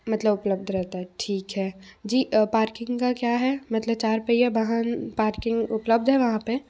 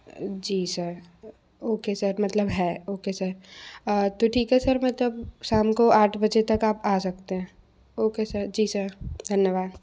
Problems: none marked